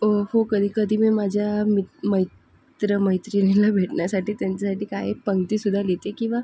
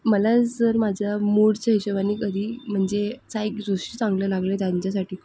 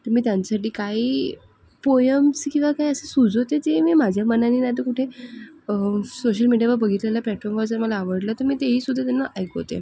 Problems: none marked